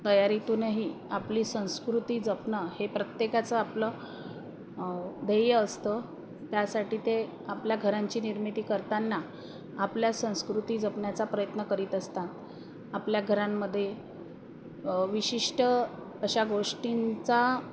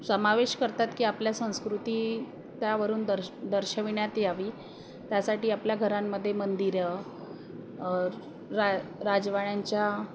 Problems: constant background noise